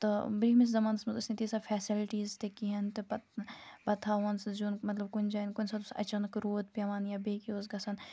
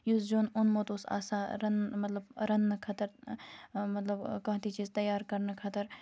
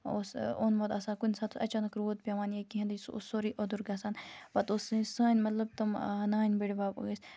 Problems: background sounds at intervals